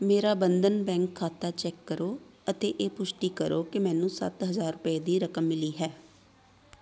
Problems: constant background noise, background conversations at intervals